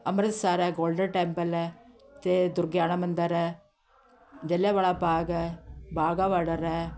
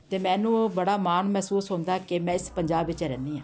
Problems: continuous background conversations